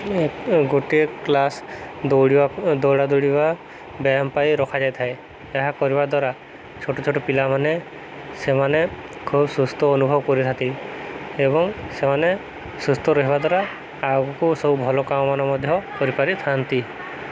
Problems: constant background noise